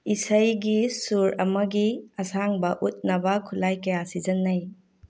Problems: none marked